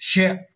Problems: none marked